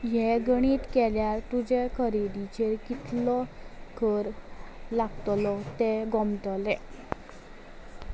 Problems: background sounds at intervals